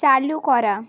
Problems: constant background noise